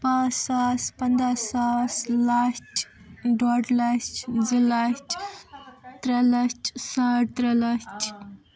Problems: constant background noise